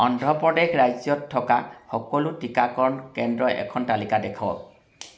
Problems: none marked